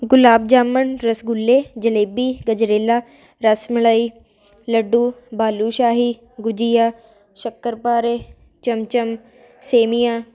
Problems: constant background noise